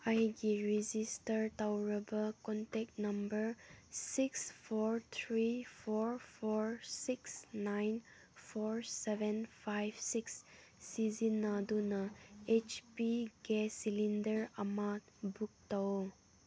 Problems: low volume